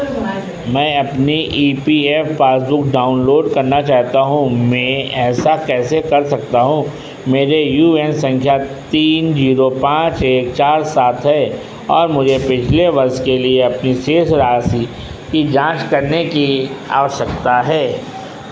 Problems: constant background noise